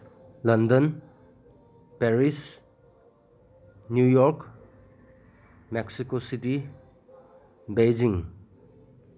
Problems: none marked